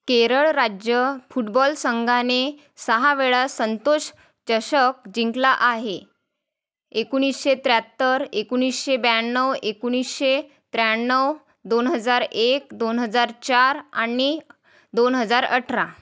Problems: none marked